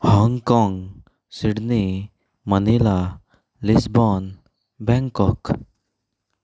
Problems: background sounds at intervals